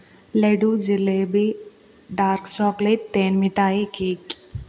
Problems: none marked